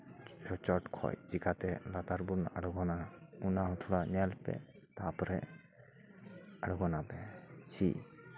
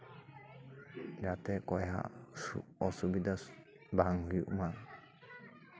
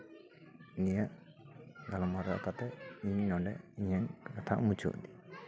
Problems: background sounds at intervals, continuous background conversations